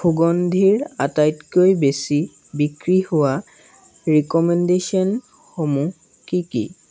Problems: none marked